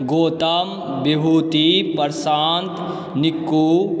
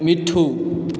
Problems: background sounds at intervals